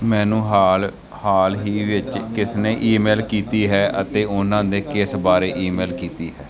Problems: background sounds at intervals, background conversations at intervals